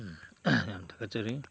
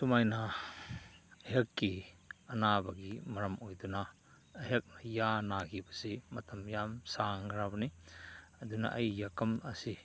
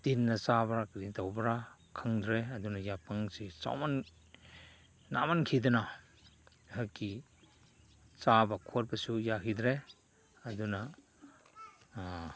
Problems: constant background noise